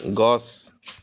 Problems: background sounds at intervals